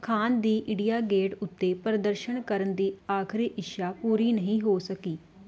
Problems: background conversations at intervals